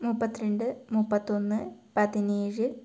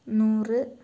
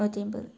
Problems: low volume